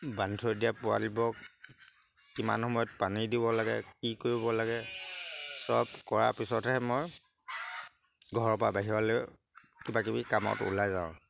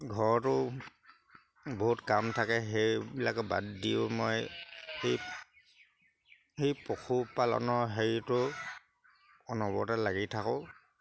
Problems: background sounds at intervals